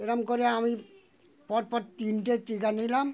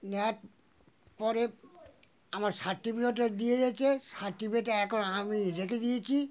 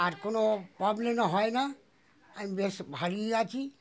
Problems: continuous background conversations